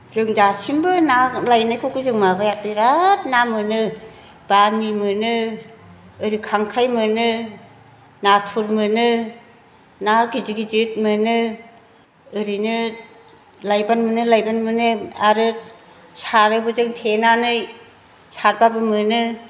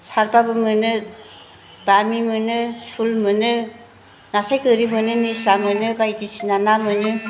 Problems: background sounds at intervals